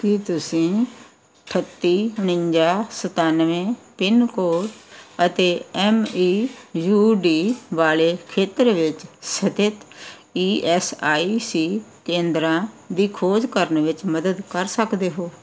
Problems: background sounds at intervals